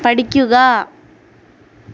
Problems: constant background noise